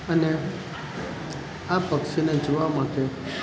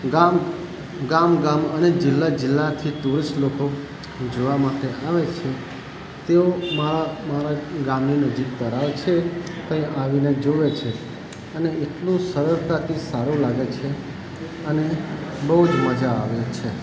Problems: constant background noise